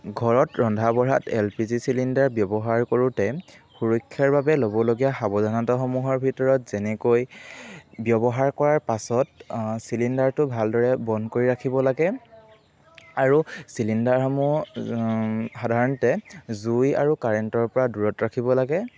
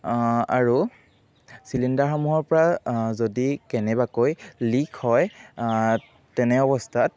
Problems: background sounds at intervals